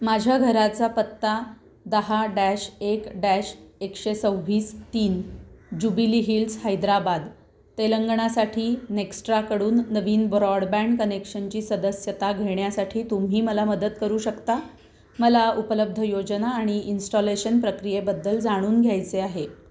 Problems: none marked